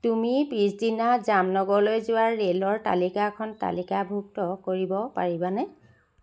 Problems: none marked